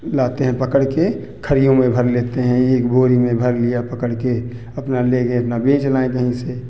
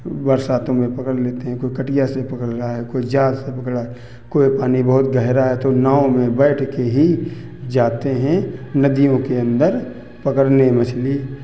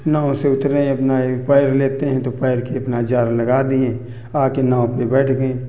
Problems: constant background noise, background conversations at intervals